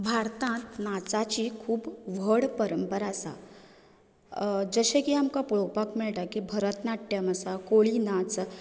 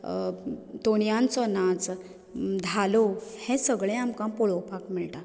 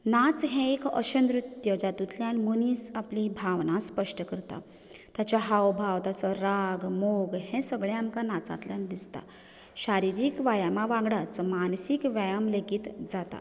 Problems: none marked